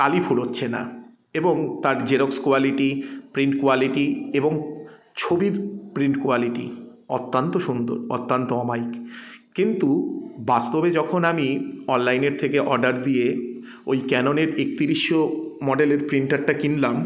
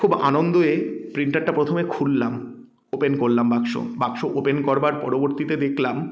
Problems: none marked